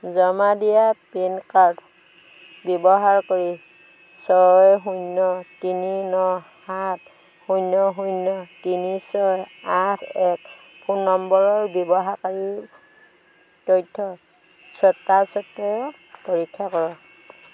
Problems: constant background noise